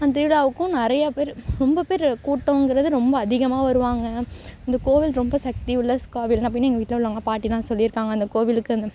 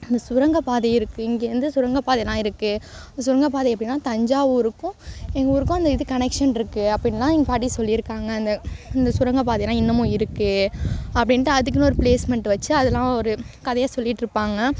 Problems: constant background noise